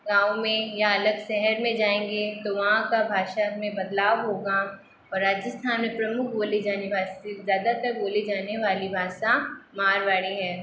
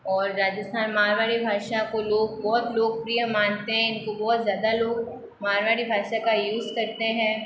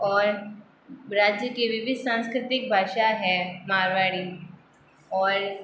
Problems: constant background noise